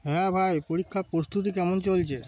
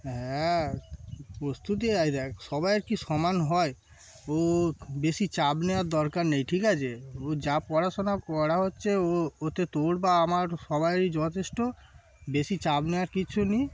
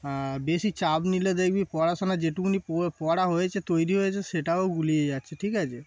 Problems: constant background noise, background conversations at intervals